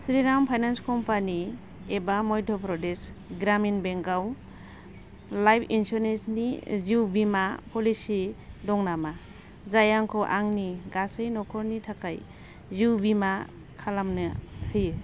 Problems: constant background noise